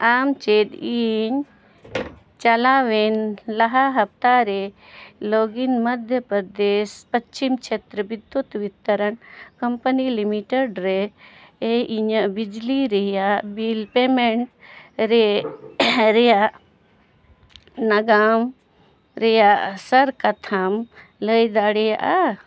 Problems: none marked